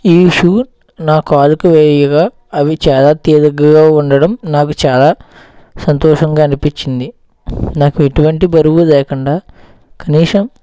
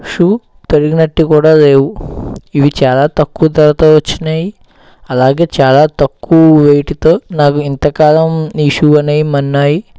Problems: background sounds at intervals